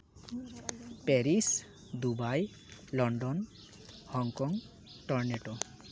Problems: constant background noise, background conversations at intervals